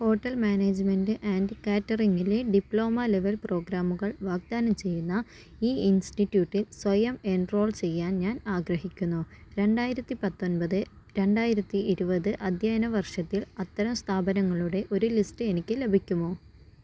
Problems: none marked